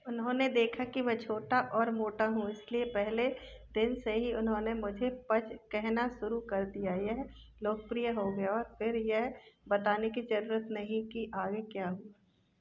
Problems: background sounds at intervals, background conversations at intervals